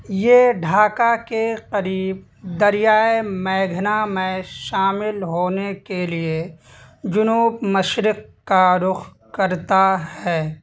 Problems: constant background noise